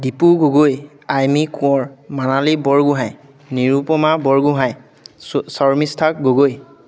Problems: constant background noise, background conversations at intervals